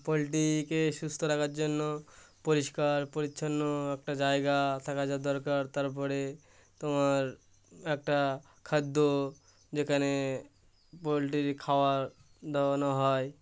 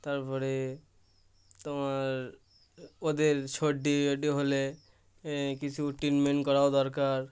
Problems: constant background noise